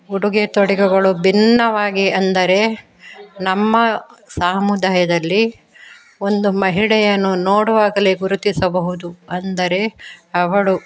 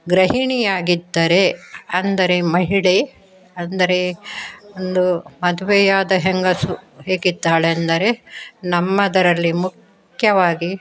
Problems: background conversations at intervals